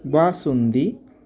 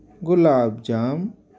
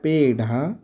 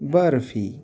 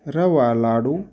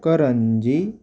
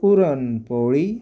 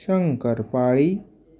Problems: constant background noise